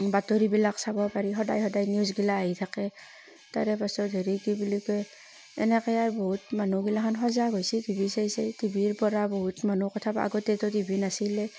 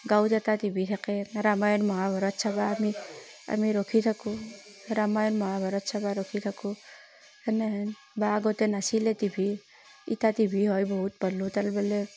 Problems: constant background noise